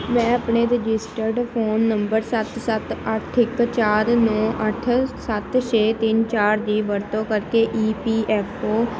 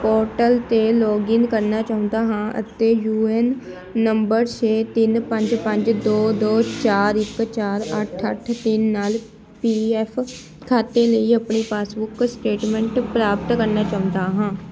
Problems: constant background noise, background conversations at intervals